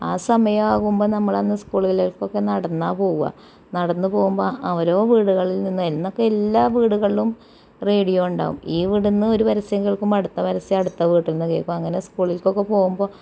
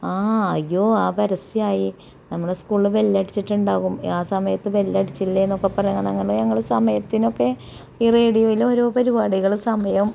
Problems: background sounds at intervals, low volume